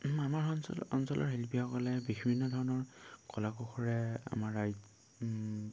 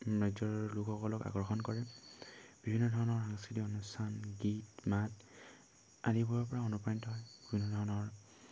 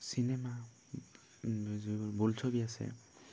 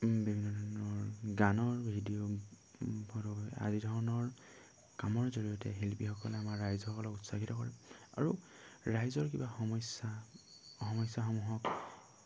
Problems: constant background noise